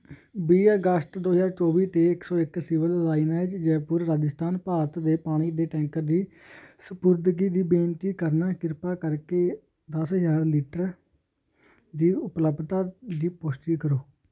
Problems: constant background noise